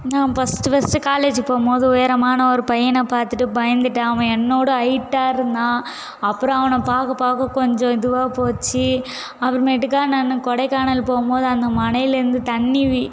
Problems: constant background noise